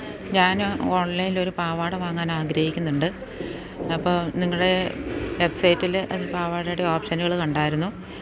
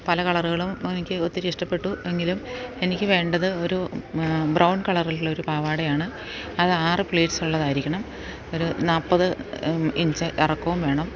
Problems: none marked